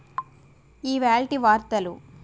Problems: constant background noise